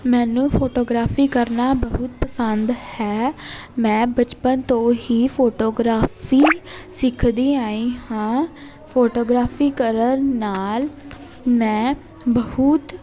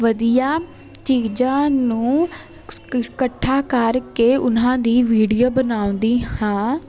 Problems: constant background noise